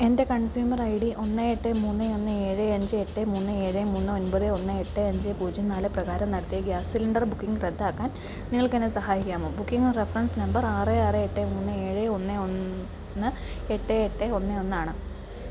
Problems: constant background noise, low volume